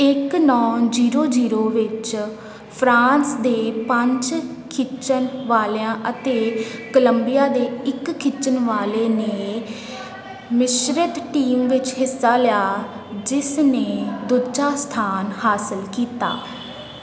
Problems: constant background noise, background conversations at intervals